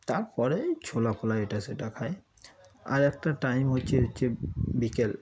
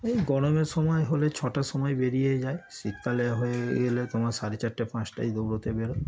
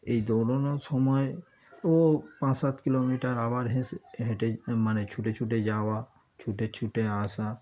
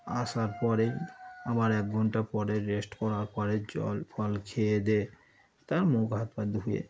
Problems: constant background noise, continuous background conversations